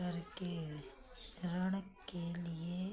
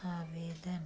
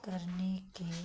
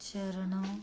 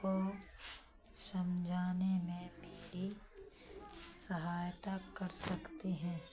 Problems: low volume